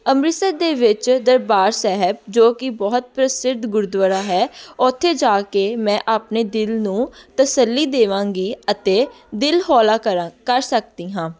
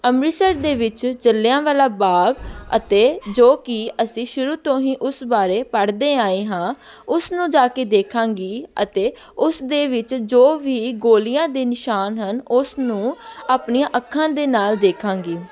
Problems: background sounds at intervals, continuous background conversations